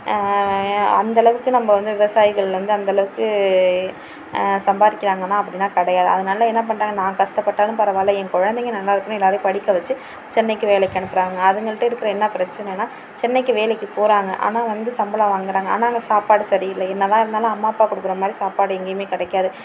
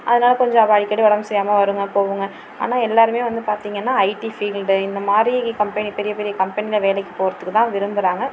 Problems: constant background noise